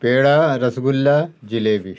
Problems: none marked